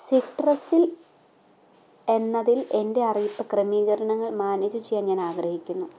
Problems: low volume